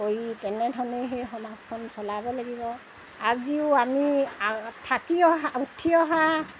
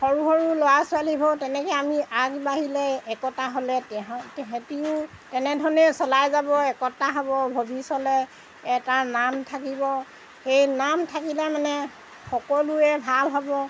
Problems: background sounds at intervals